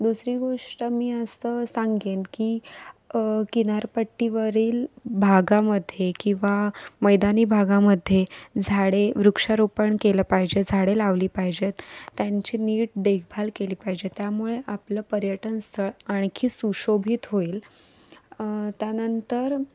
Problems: constant background noise